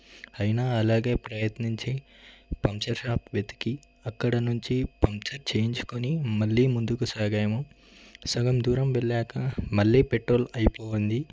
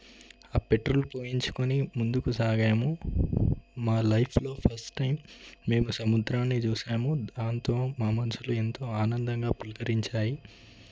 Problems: none marked